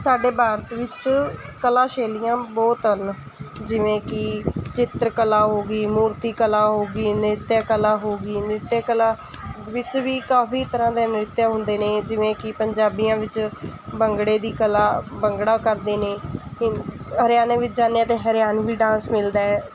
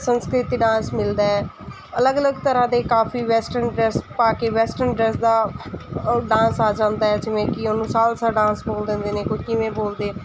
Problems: constant background noise